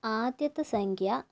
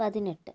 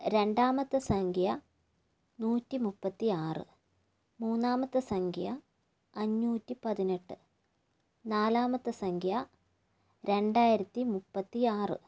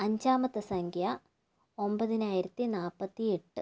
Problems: low volume